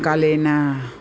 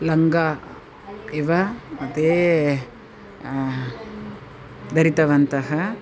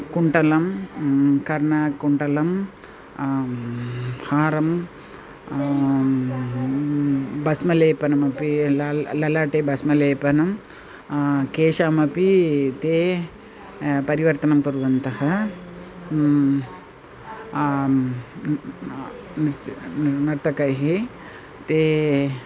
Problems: none marked